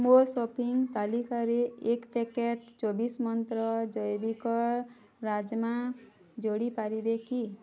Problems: none marked